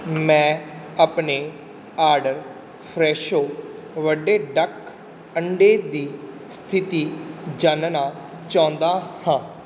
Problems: constant background noise